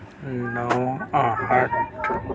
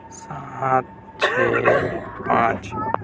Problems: constant background noise, continuous background conversations, low volume